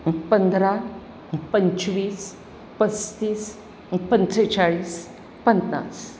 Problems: constant background noise